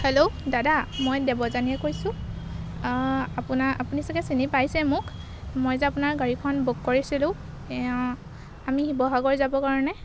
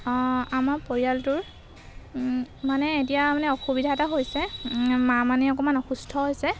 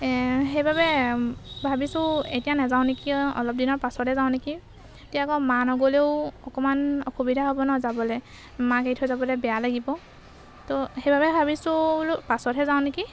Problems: background sounds at intervals